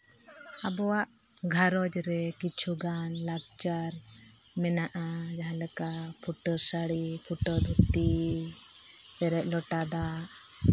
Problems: constant background noise, low volume